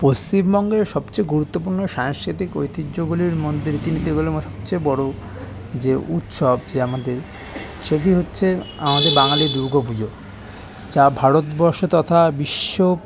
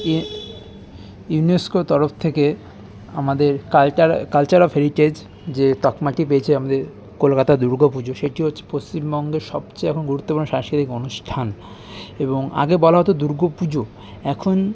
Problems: constant background noise, continuous background conversations